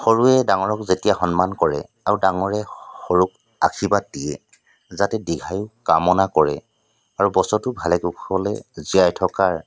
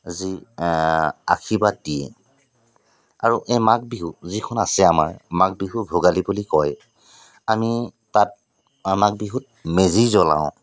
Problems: constant background noise